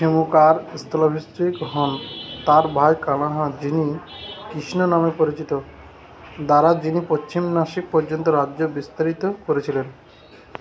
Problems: none marked